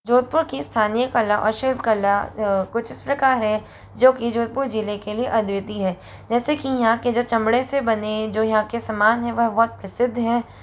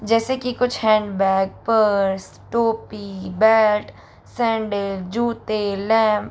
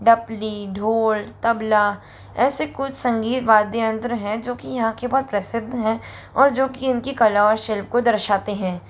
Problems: none marked